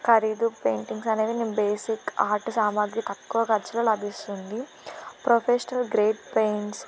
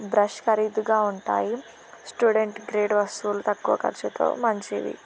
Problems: constant background noise